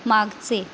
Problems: none marked